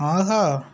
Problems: constant background noise